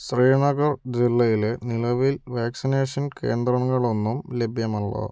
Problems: none marked